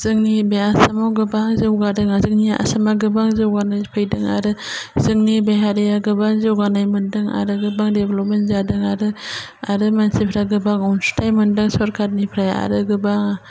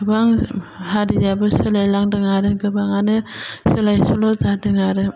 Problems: low volume